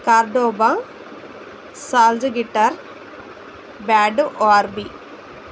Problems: constant background noise